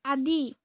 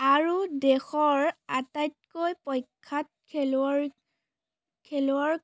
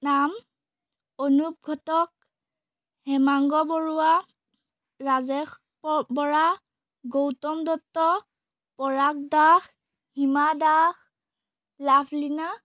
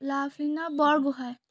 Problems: none marked